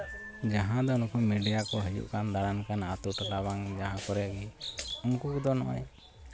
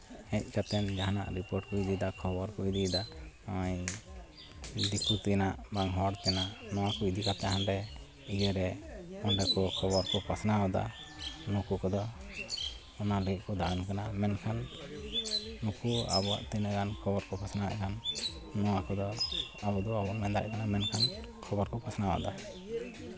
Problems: constant background noise, continuous background conversations